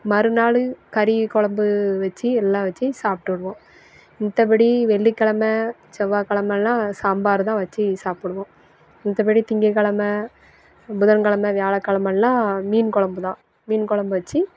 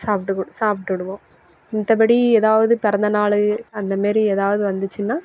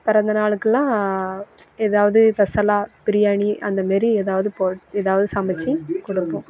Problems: none marked